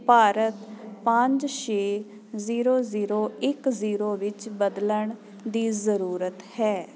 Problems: constant background noise